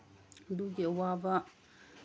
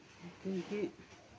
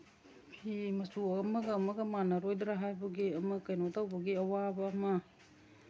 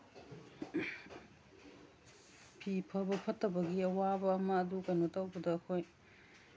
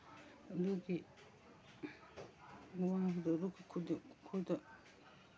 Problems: none marked